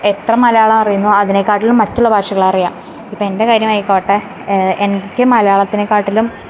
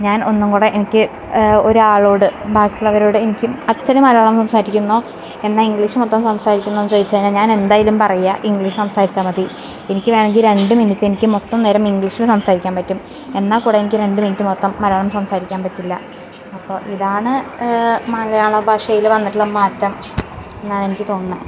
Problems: background sounds at intervals, background conversations at intervals